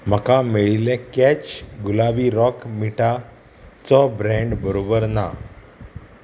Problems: constant background noise